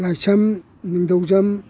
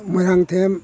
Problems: none marked